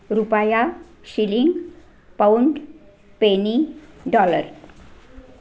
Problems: background sounds at intervals